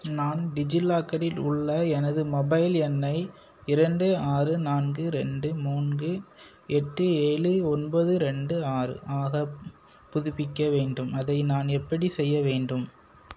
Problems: constant background noise